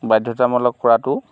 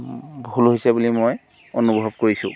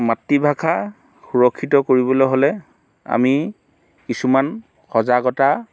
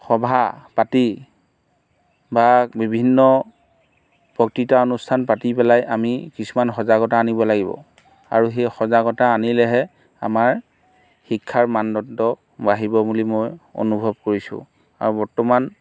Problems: background sounds at intervals